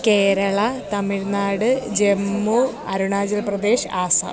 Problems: background conversations at intervals